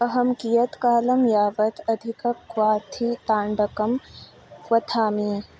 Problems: none marked